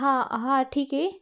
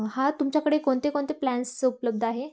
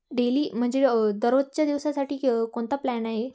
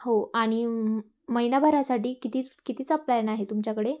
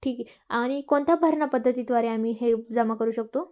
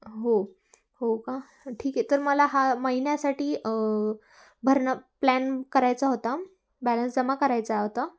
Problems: constant background noise, background conversations at intervals